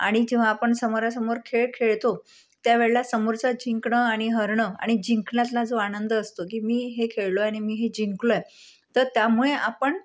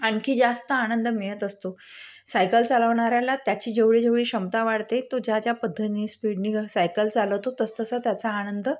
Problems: none marked